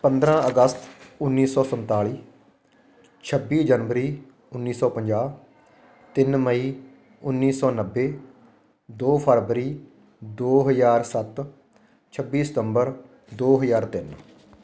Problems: constant background noise